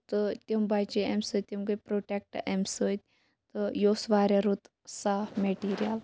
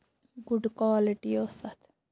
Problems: none marked